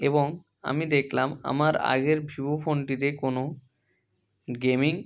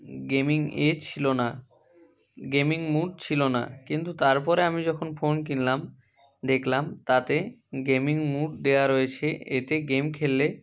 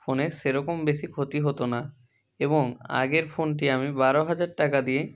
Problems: constant background noise, continuous background conversations